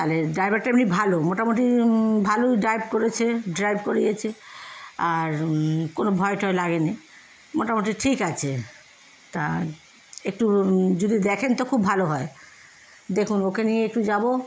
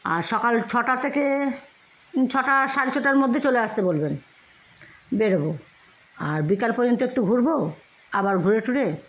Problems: none marked